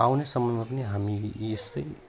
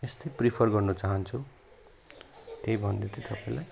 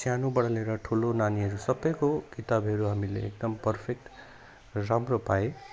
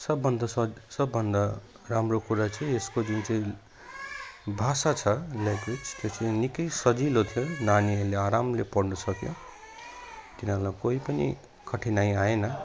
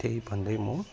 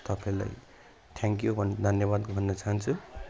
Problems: none marked